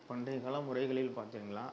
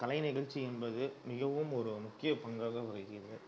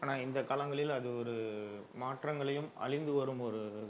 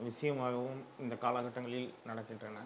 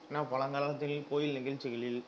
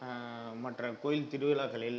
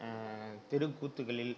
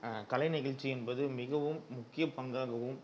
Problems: low volume